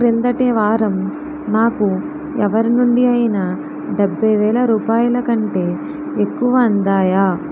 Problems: constant background noise